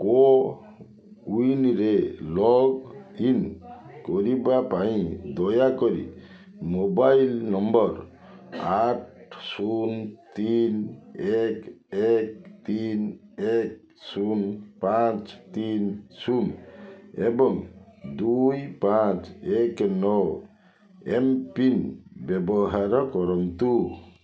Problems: continuous background conversations